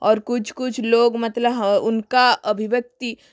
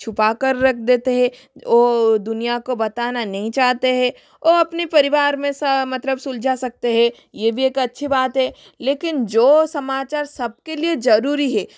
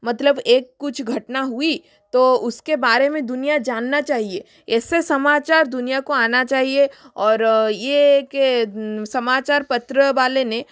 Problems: constant background noise, echo